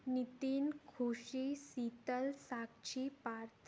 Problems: none marked